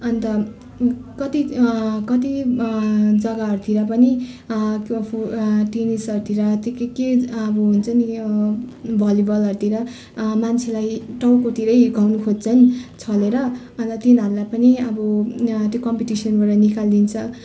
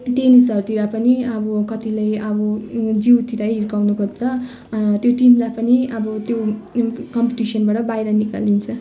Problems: constant background noise